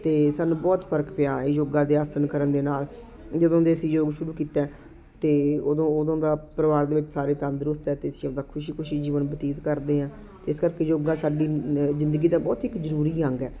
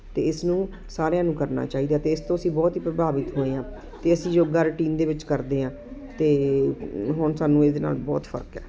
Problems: constant background noise